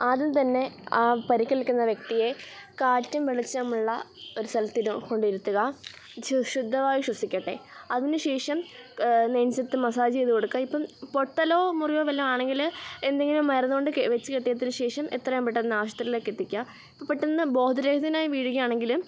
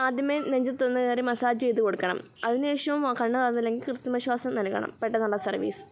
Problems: none marked